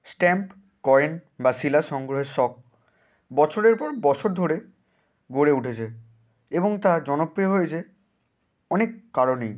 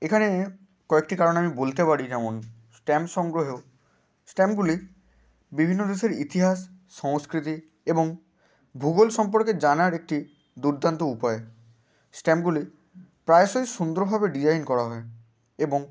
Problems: none marked